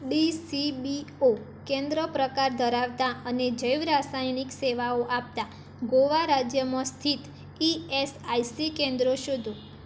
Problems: constant background noise